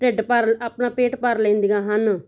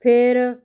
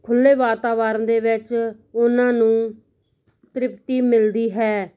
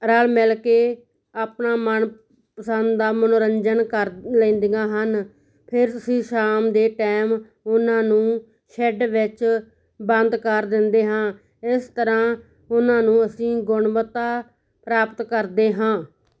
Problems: none marked